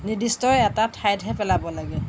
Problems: background sounds at intervals